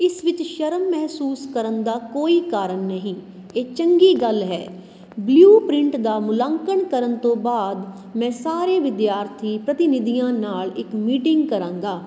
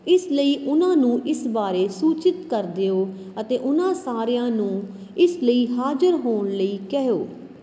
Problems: none marked